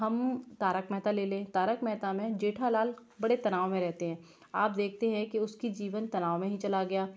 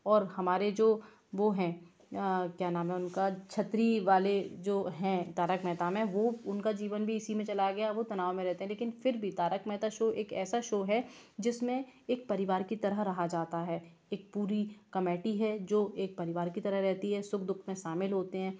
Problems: background sounds at intervals